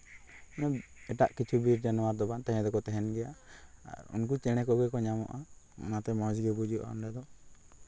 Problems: constant background noise